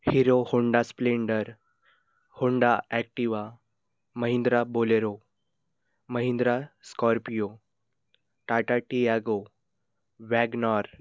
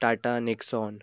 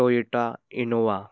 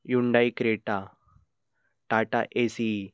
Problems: background sounds at intervals